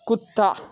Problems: constant background noise, background conversations at intervals